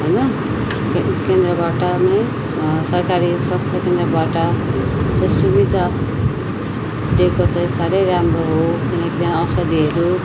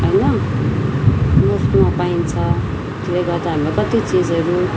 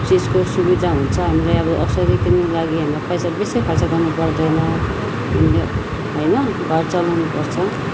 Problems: constant background noise, continuous background conversations